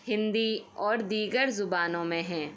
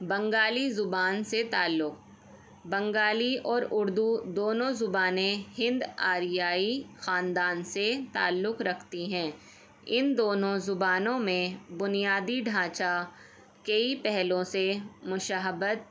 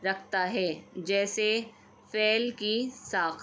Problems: none marked